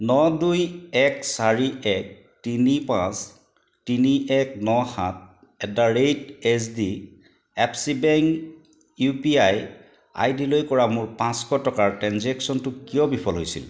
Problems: background sounds at intervals